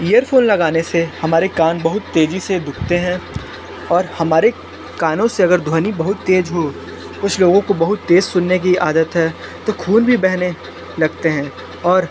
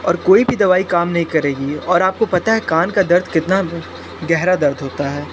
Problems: constant background noise